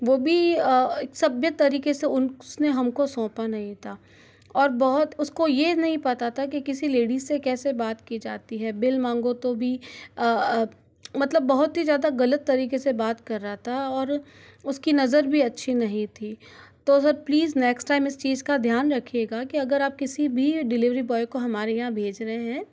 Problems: background sounds at intervals